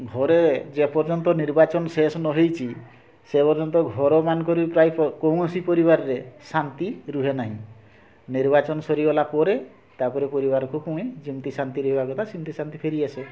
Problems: constant background noise, continuous background conversations